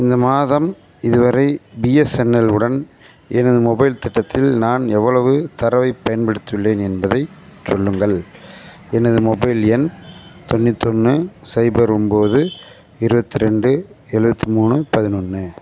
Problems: constant background noise, background conversations at intervals